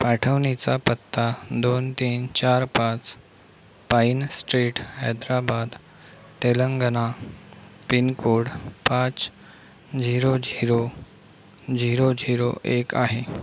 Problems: constant background noise